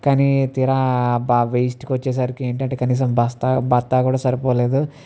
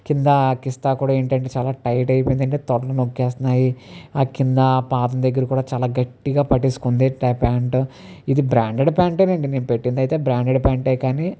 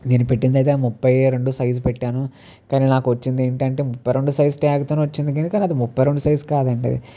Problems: none marked